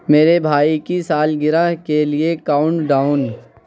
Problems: constant background noise